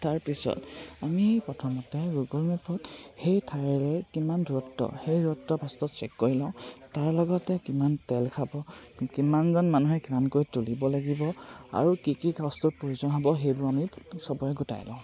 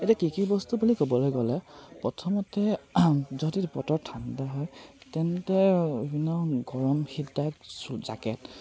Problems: constant background noise